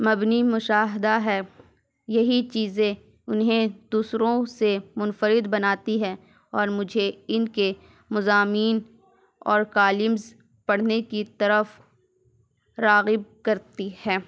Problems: none marked